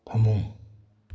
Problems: none marked